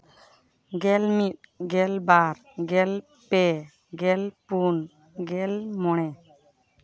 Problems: background conversations at intervals